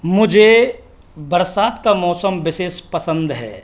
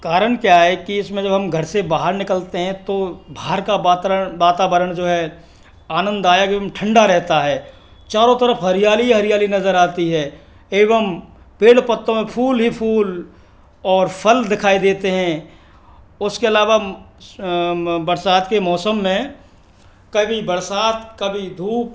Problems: none marked